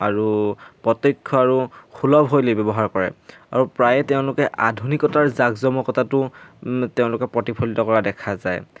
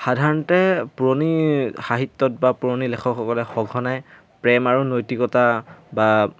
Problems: background sounds at intervals